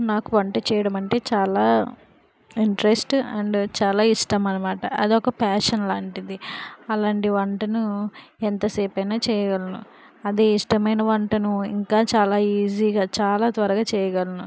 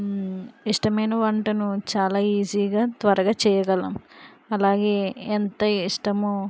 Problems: background sounds at intervals